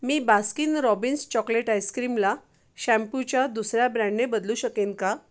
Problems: none marked